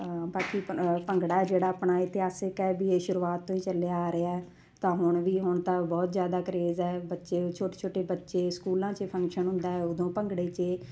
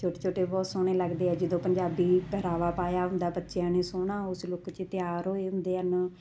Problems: constant background noise